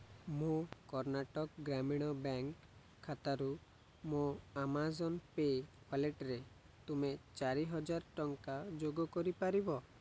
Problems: none marked